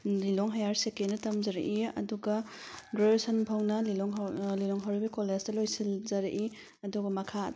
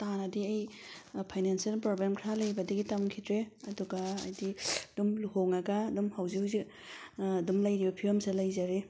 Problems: none marked